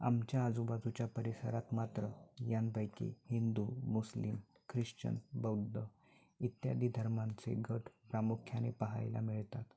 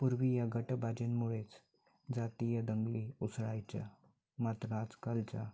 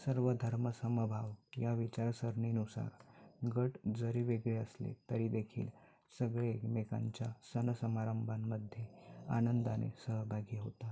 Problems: background sounds at intervals, background conversations at intervals